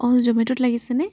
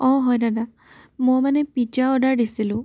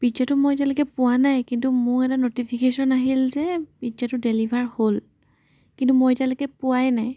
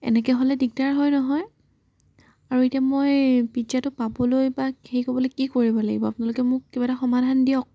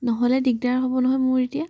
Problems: background sounds at intervals